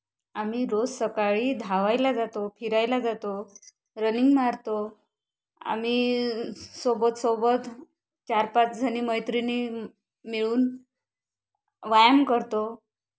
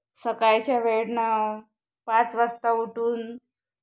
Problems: constant background noise